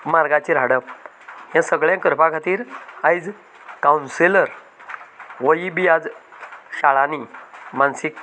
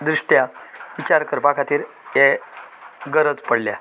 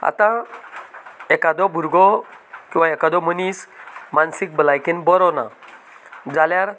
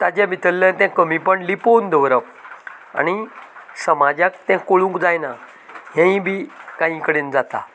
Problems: constant background noise